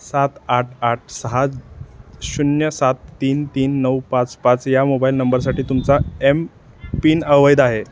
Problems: none marked